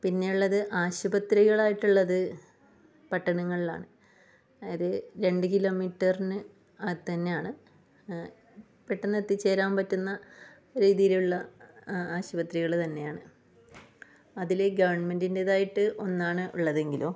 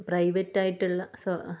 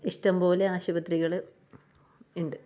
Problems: low volume